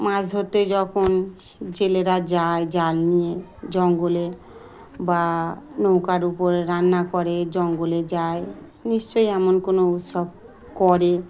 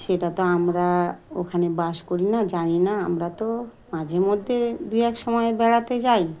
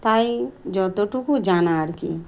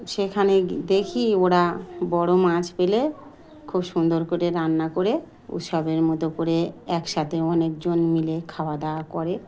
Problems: none marked